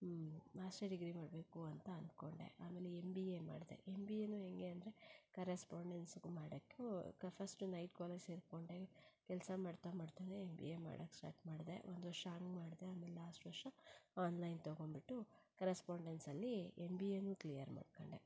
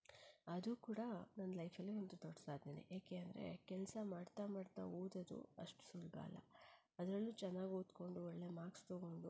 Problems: low volume